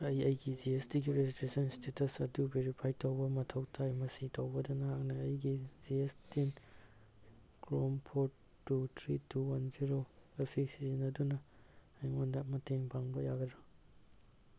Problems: background sounds at intervals